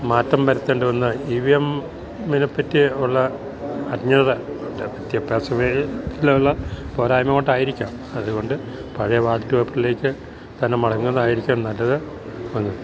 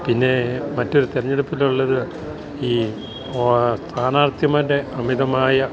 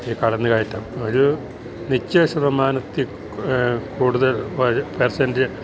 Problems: background sounds at intervals